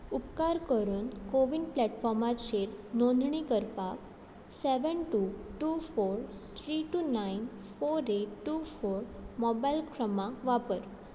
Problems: none marked